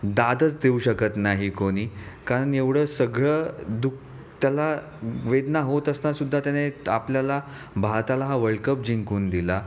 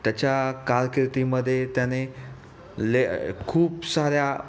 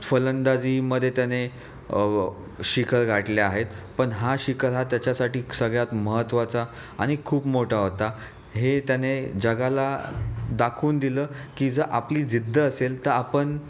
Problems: none marked